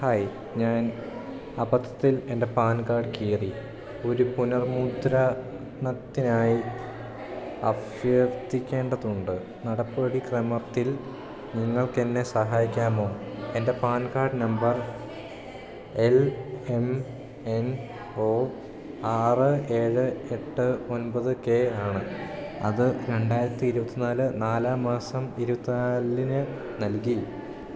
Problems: background sounds at intervals